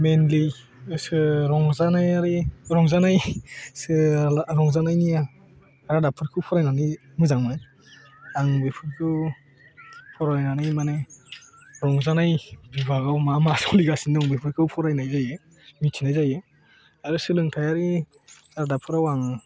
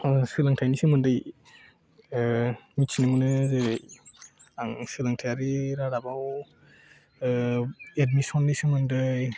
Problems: background conversations at intervals